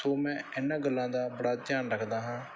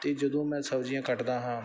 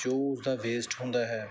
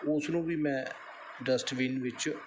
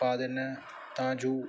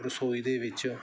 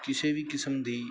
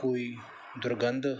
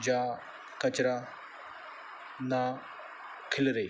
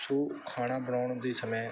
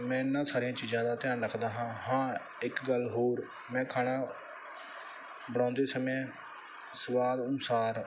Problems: background sounds at intervals